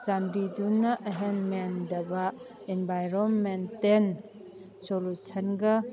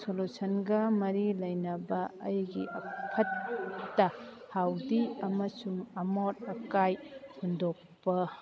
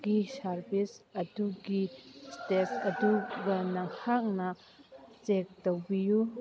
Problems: background conversations at intervals